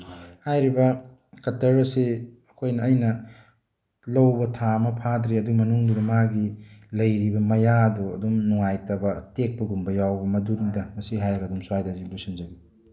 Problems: background conversations at intervals